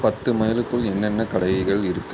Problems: constant background noise